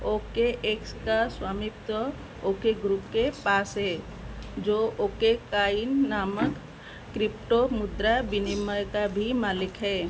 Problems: constant background noise